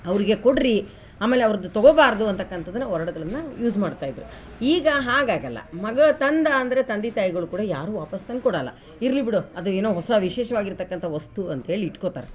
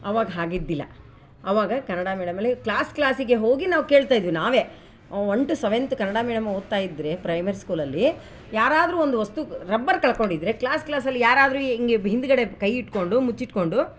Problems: background sounds at intervals